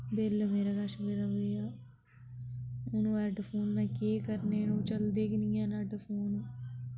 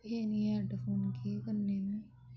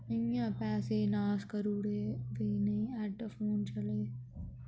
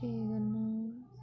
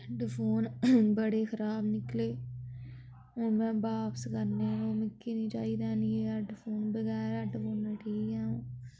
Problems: low volume